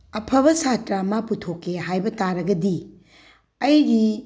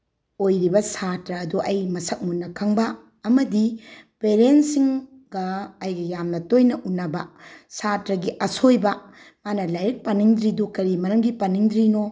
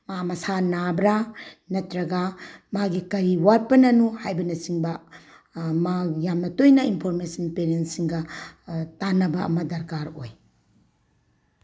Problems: background sounds at intervals